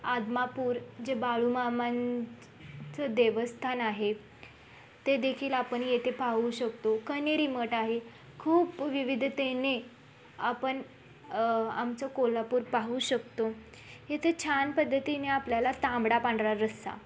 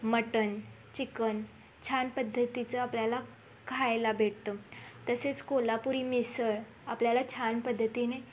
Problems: constant background noise, background conversations at intervals